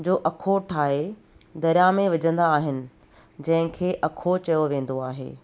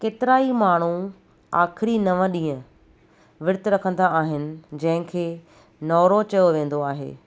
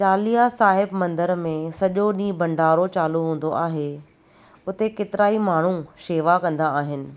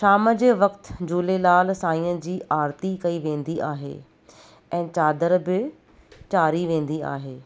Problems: none marked